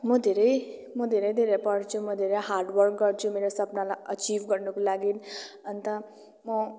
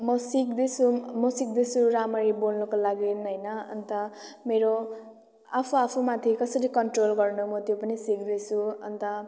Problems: continuous background conversations